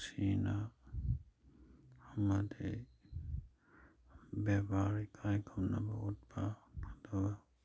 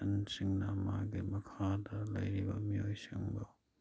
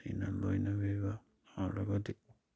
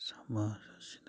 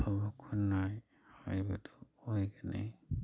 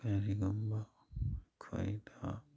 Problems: background sounds at intervals